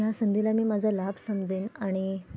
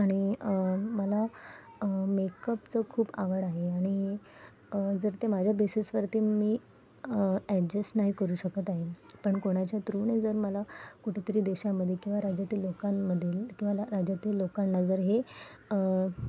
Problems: background sounds at intervals